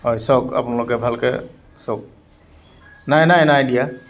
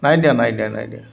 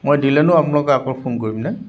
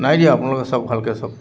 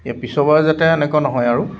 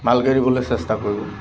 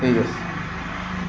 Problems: constant background noise